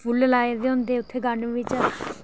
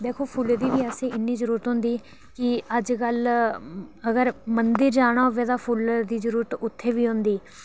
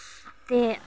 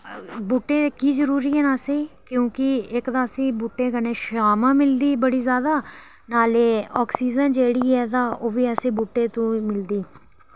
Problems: background sounds at intervals